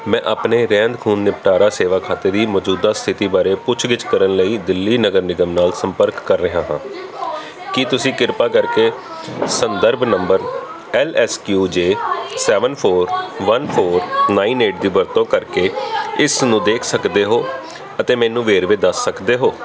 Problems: continuous background conversations